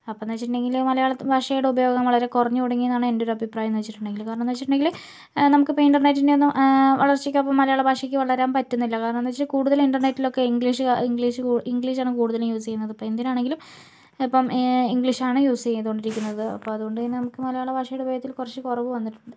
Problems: low volume